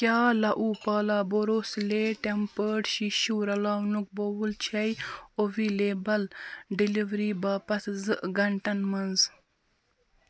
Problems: constant background noise